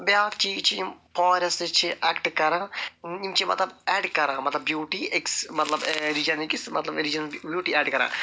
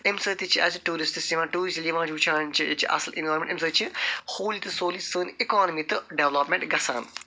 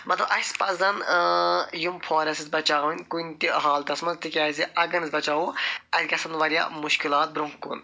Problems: none marked